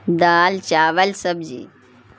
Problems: none marked